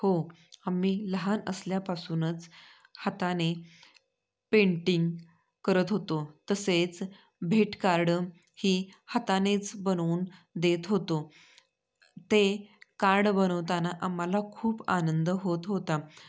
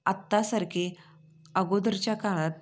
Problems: none marked